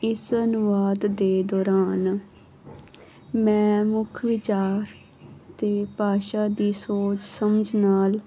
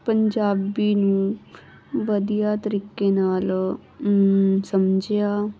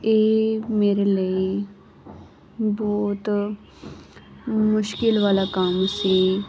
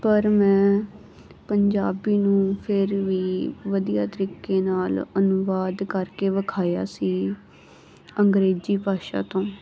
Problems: background sounds at intervals